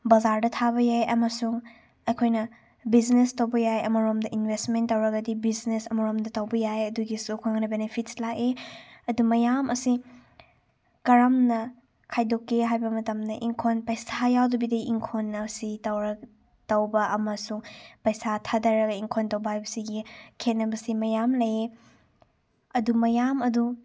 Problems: none marked